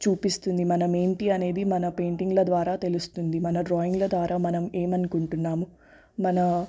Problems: none marked